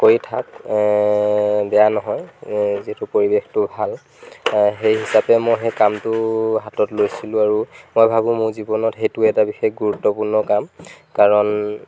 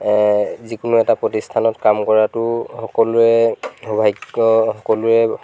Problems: background sounds at intervals